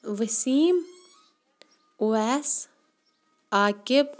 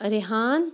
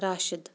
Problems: background sounds at intervals, background conversations at intervals